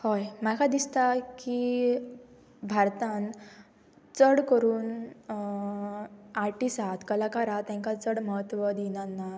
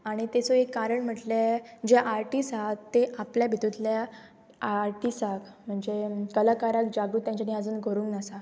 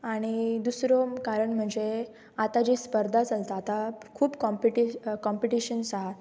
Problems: background sounds at intervals